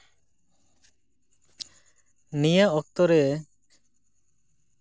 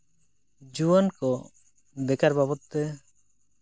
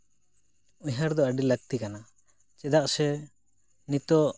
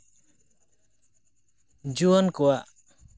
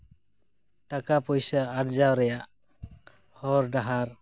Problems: none marked